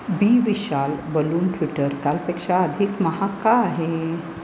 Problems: constant background noise